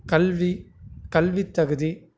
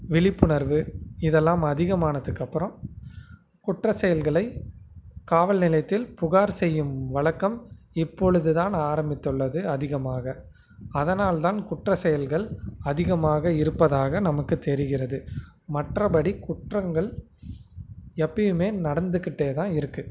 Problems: constant background noise